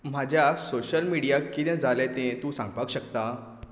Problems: none marked